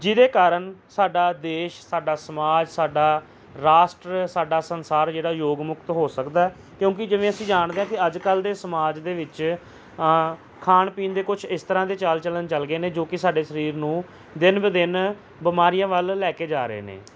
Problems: background sounds at intervals